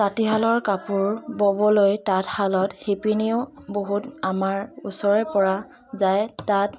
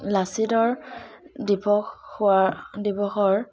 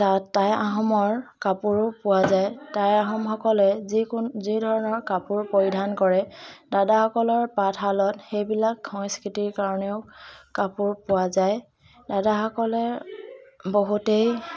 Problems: background sounds at intervals, continuous background conversations